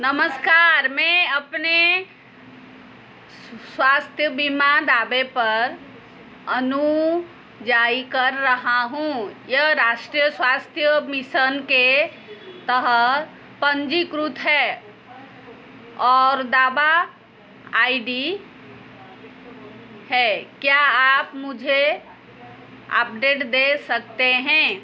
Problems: background sounds at intervals